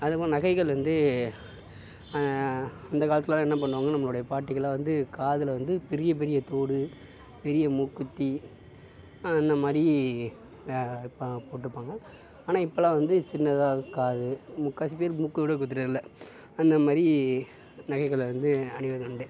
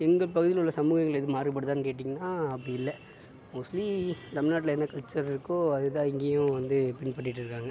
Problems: constant background noise